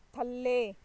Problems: background sounds at intervals